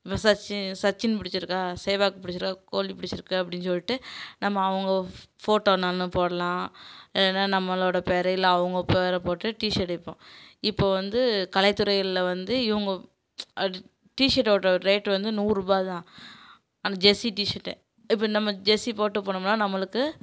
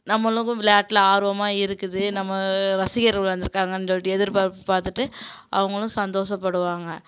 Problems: background sounds at intervals